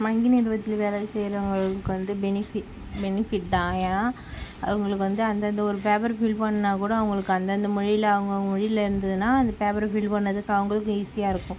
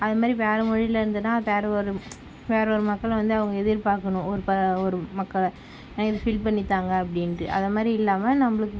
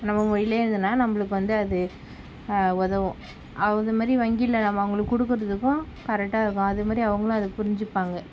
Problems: background sounds at intervals